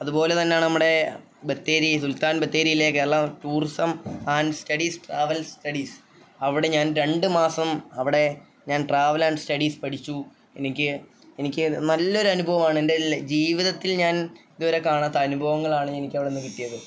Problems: none marked